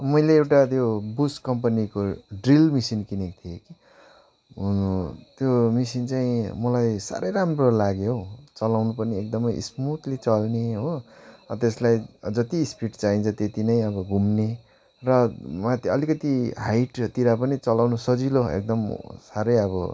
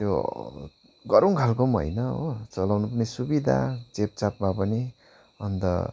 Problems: background sounds at intervals